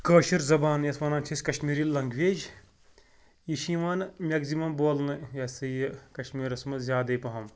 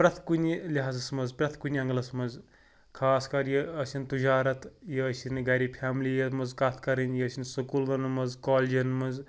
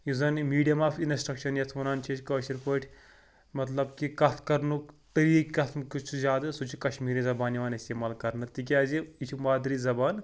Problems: none marked